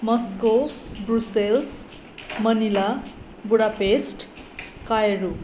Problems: continuous background conversations